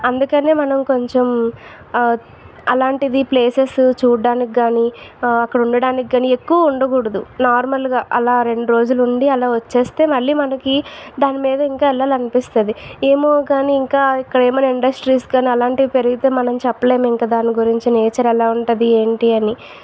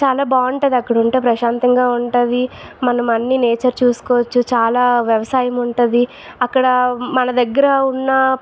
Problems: background sounds at intervals